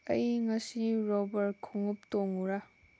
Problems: background sounds at intervals